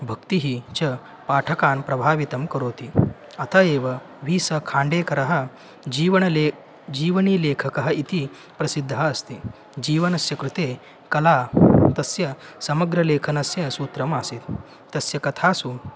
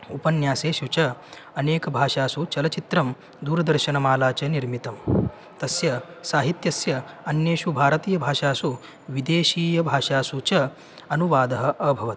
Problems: constant background noise